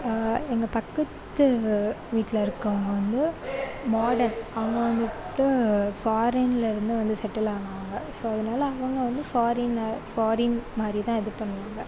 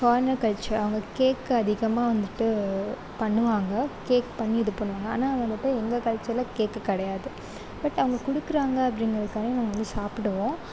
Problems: none marked